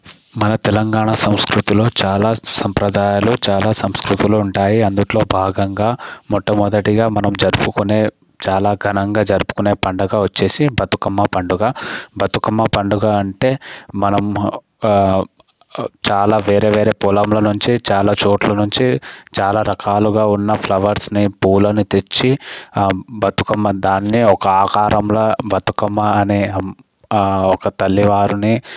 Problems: background sounds at intervals